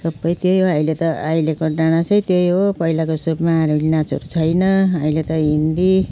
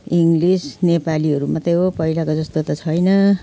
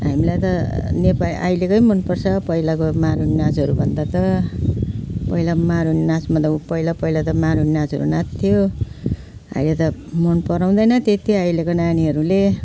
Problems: none marked